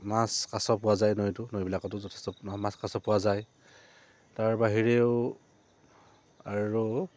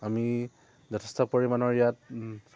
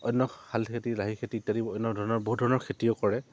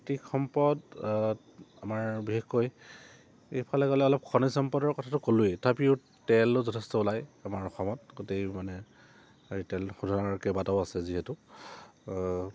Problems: low volume